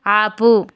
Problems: constant background noise